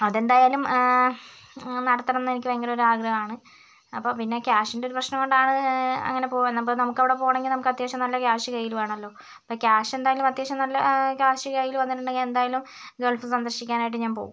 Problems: none marked